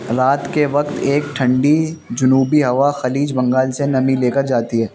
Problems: constant background noise